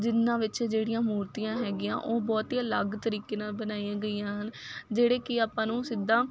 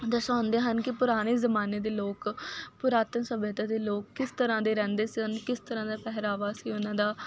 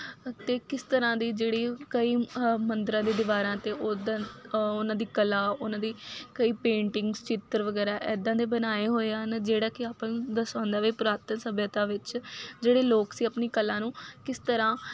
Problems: none marked